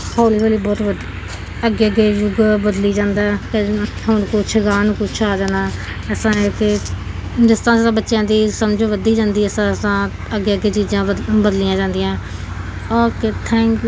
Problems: constant background noise